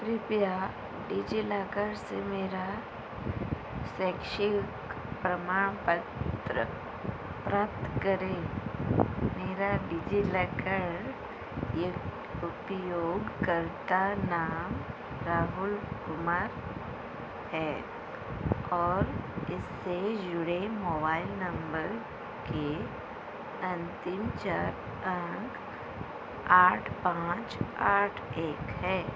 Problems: constant background noise